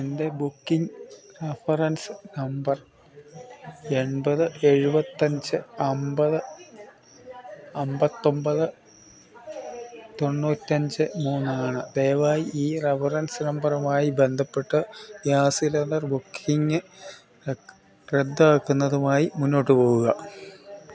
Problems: continuous background conversations